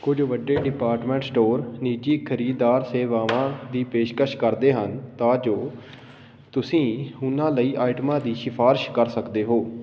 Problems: background sounds at intervals